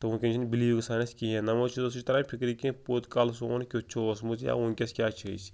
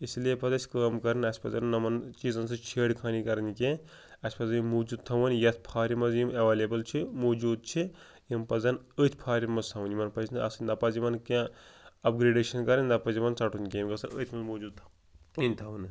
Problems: none marked